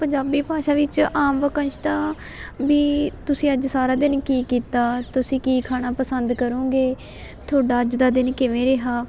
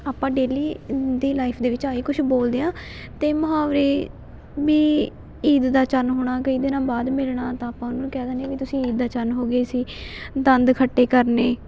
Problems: none marked